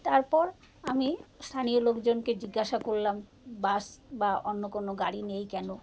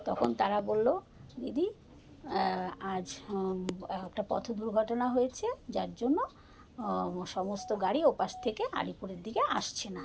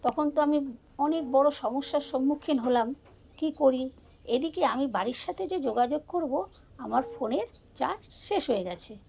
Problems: constant background noise, background conversations at intervals